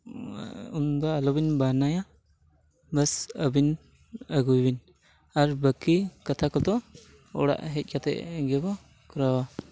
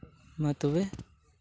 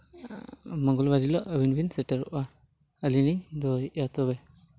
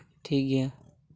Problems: none marked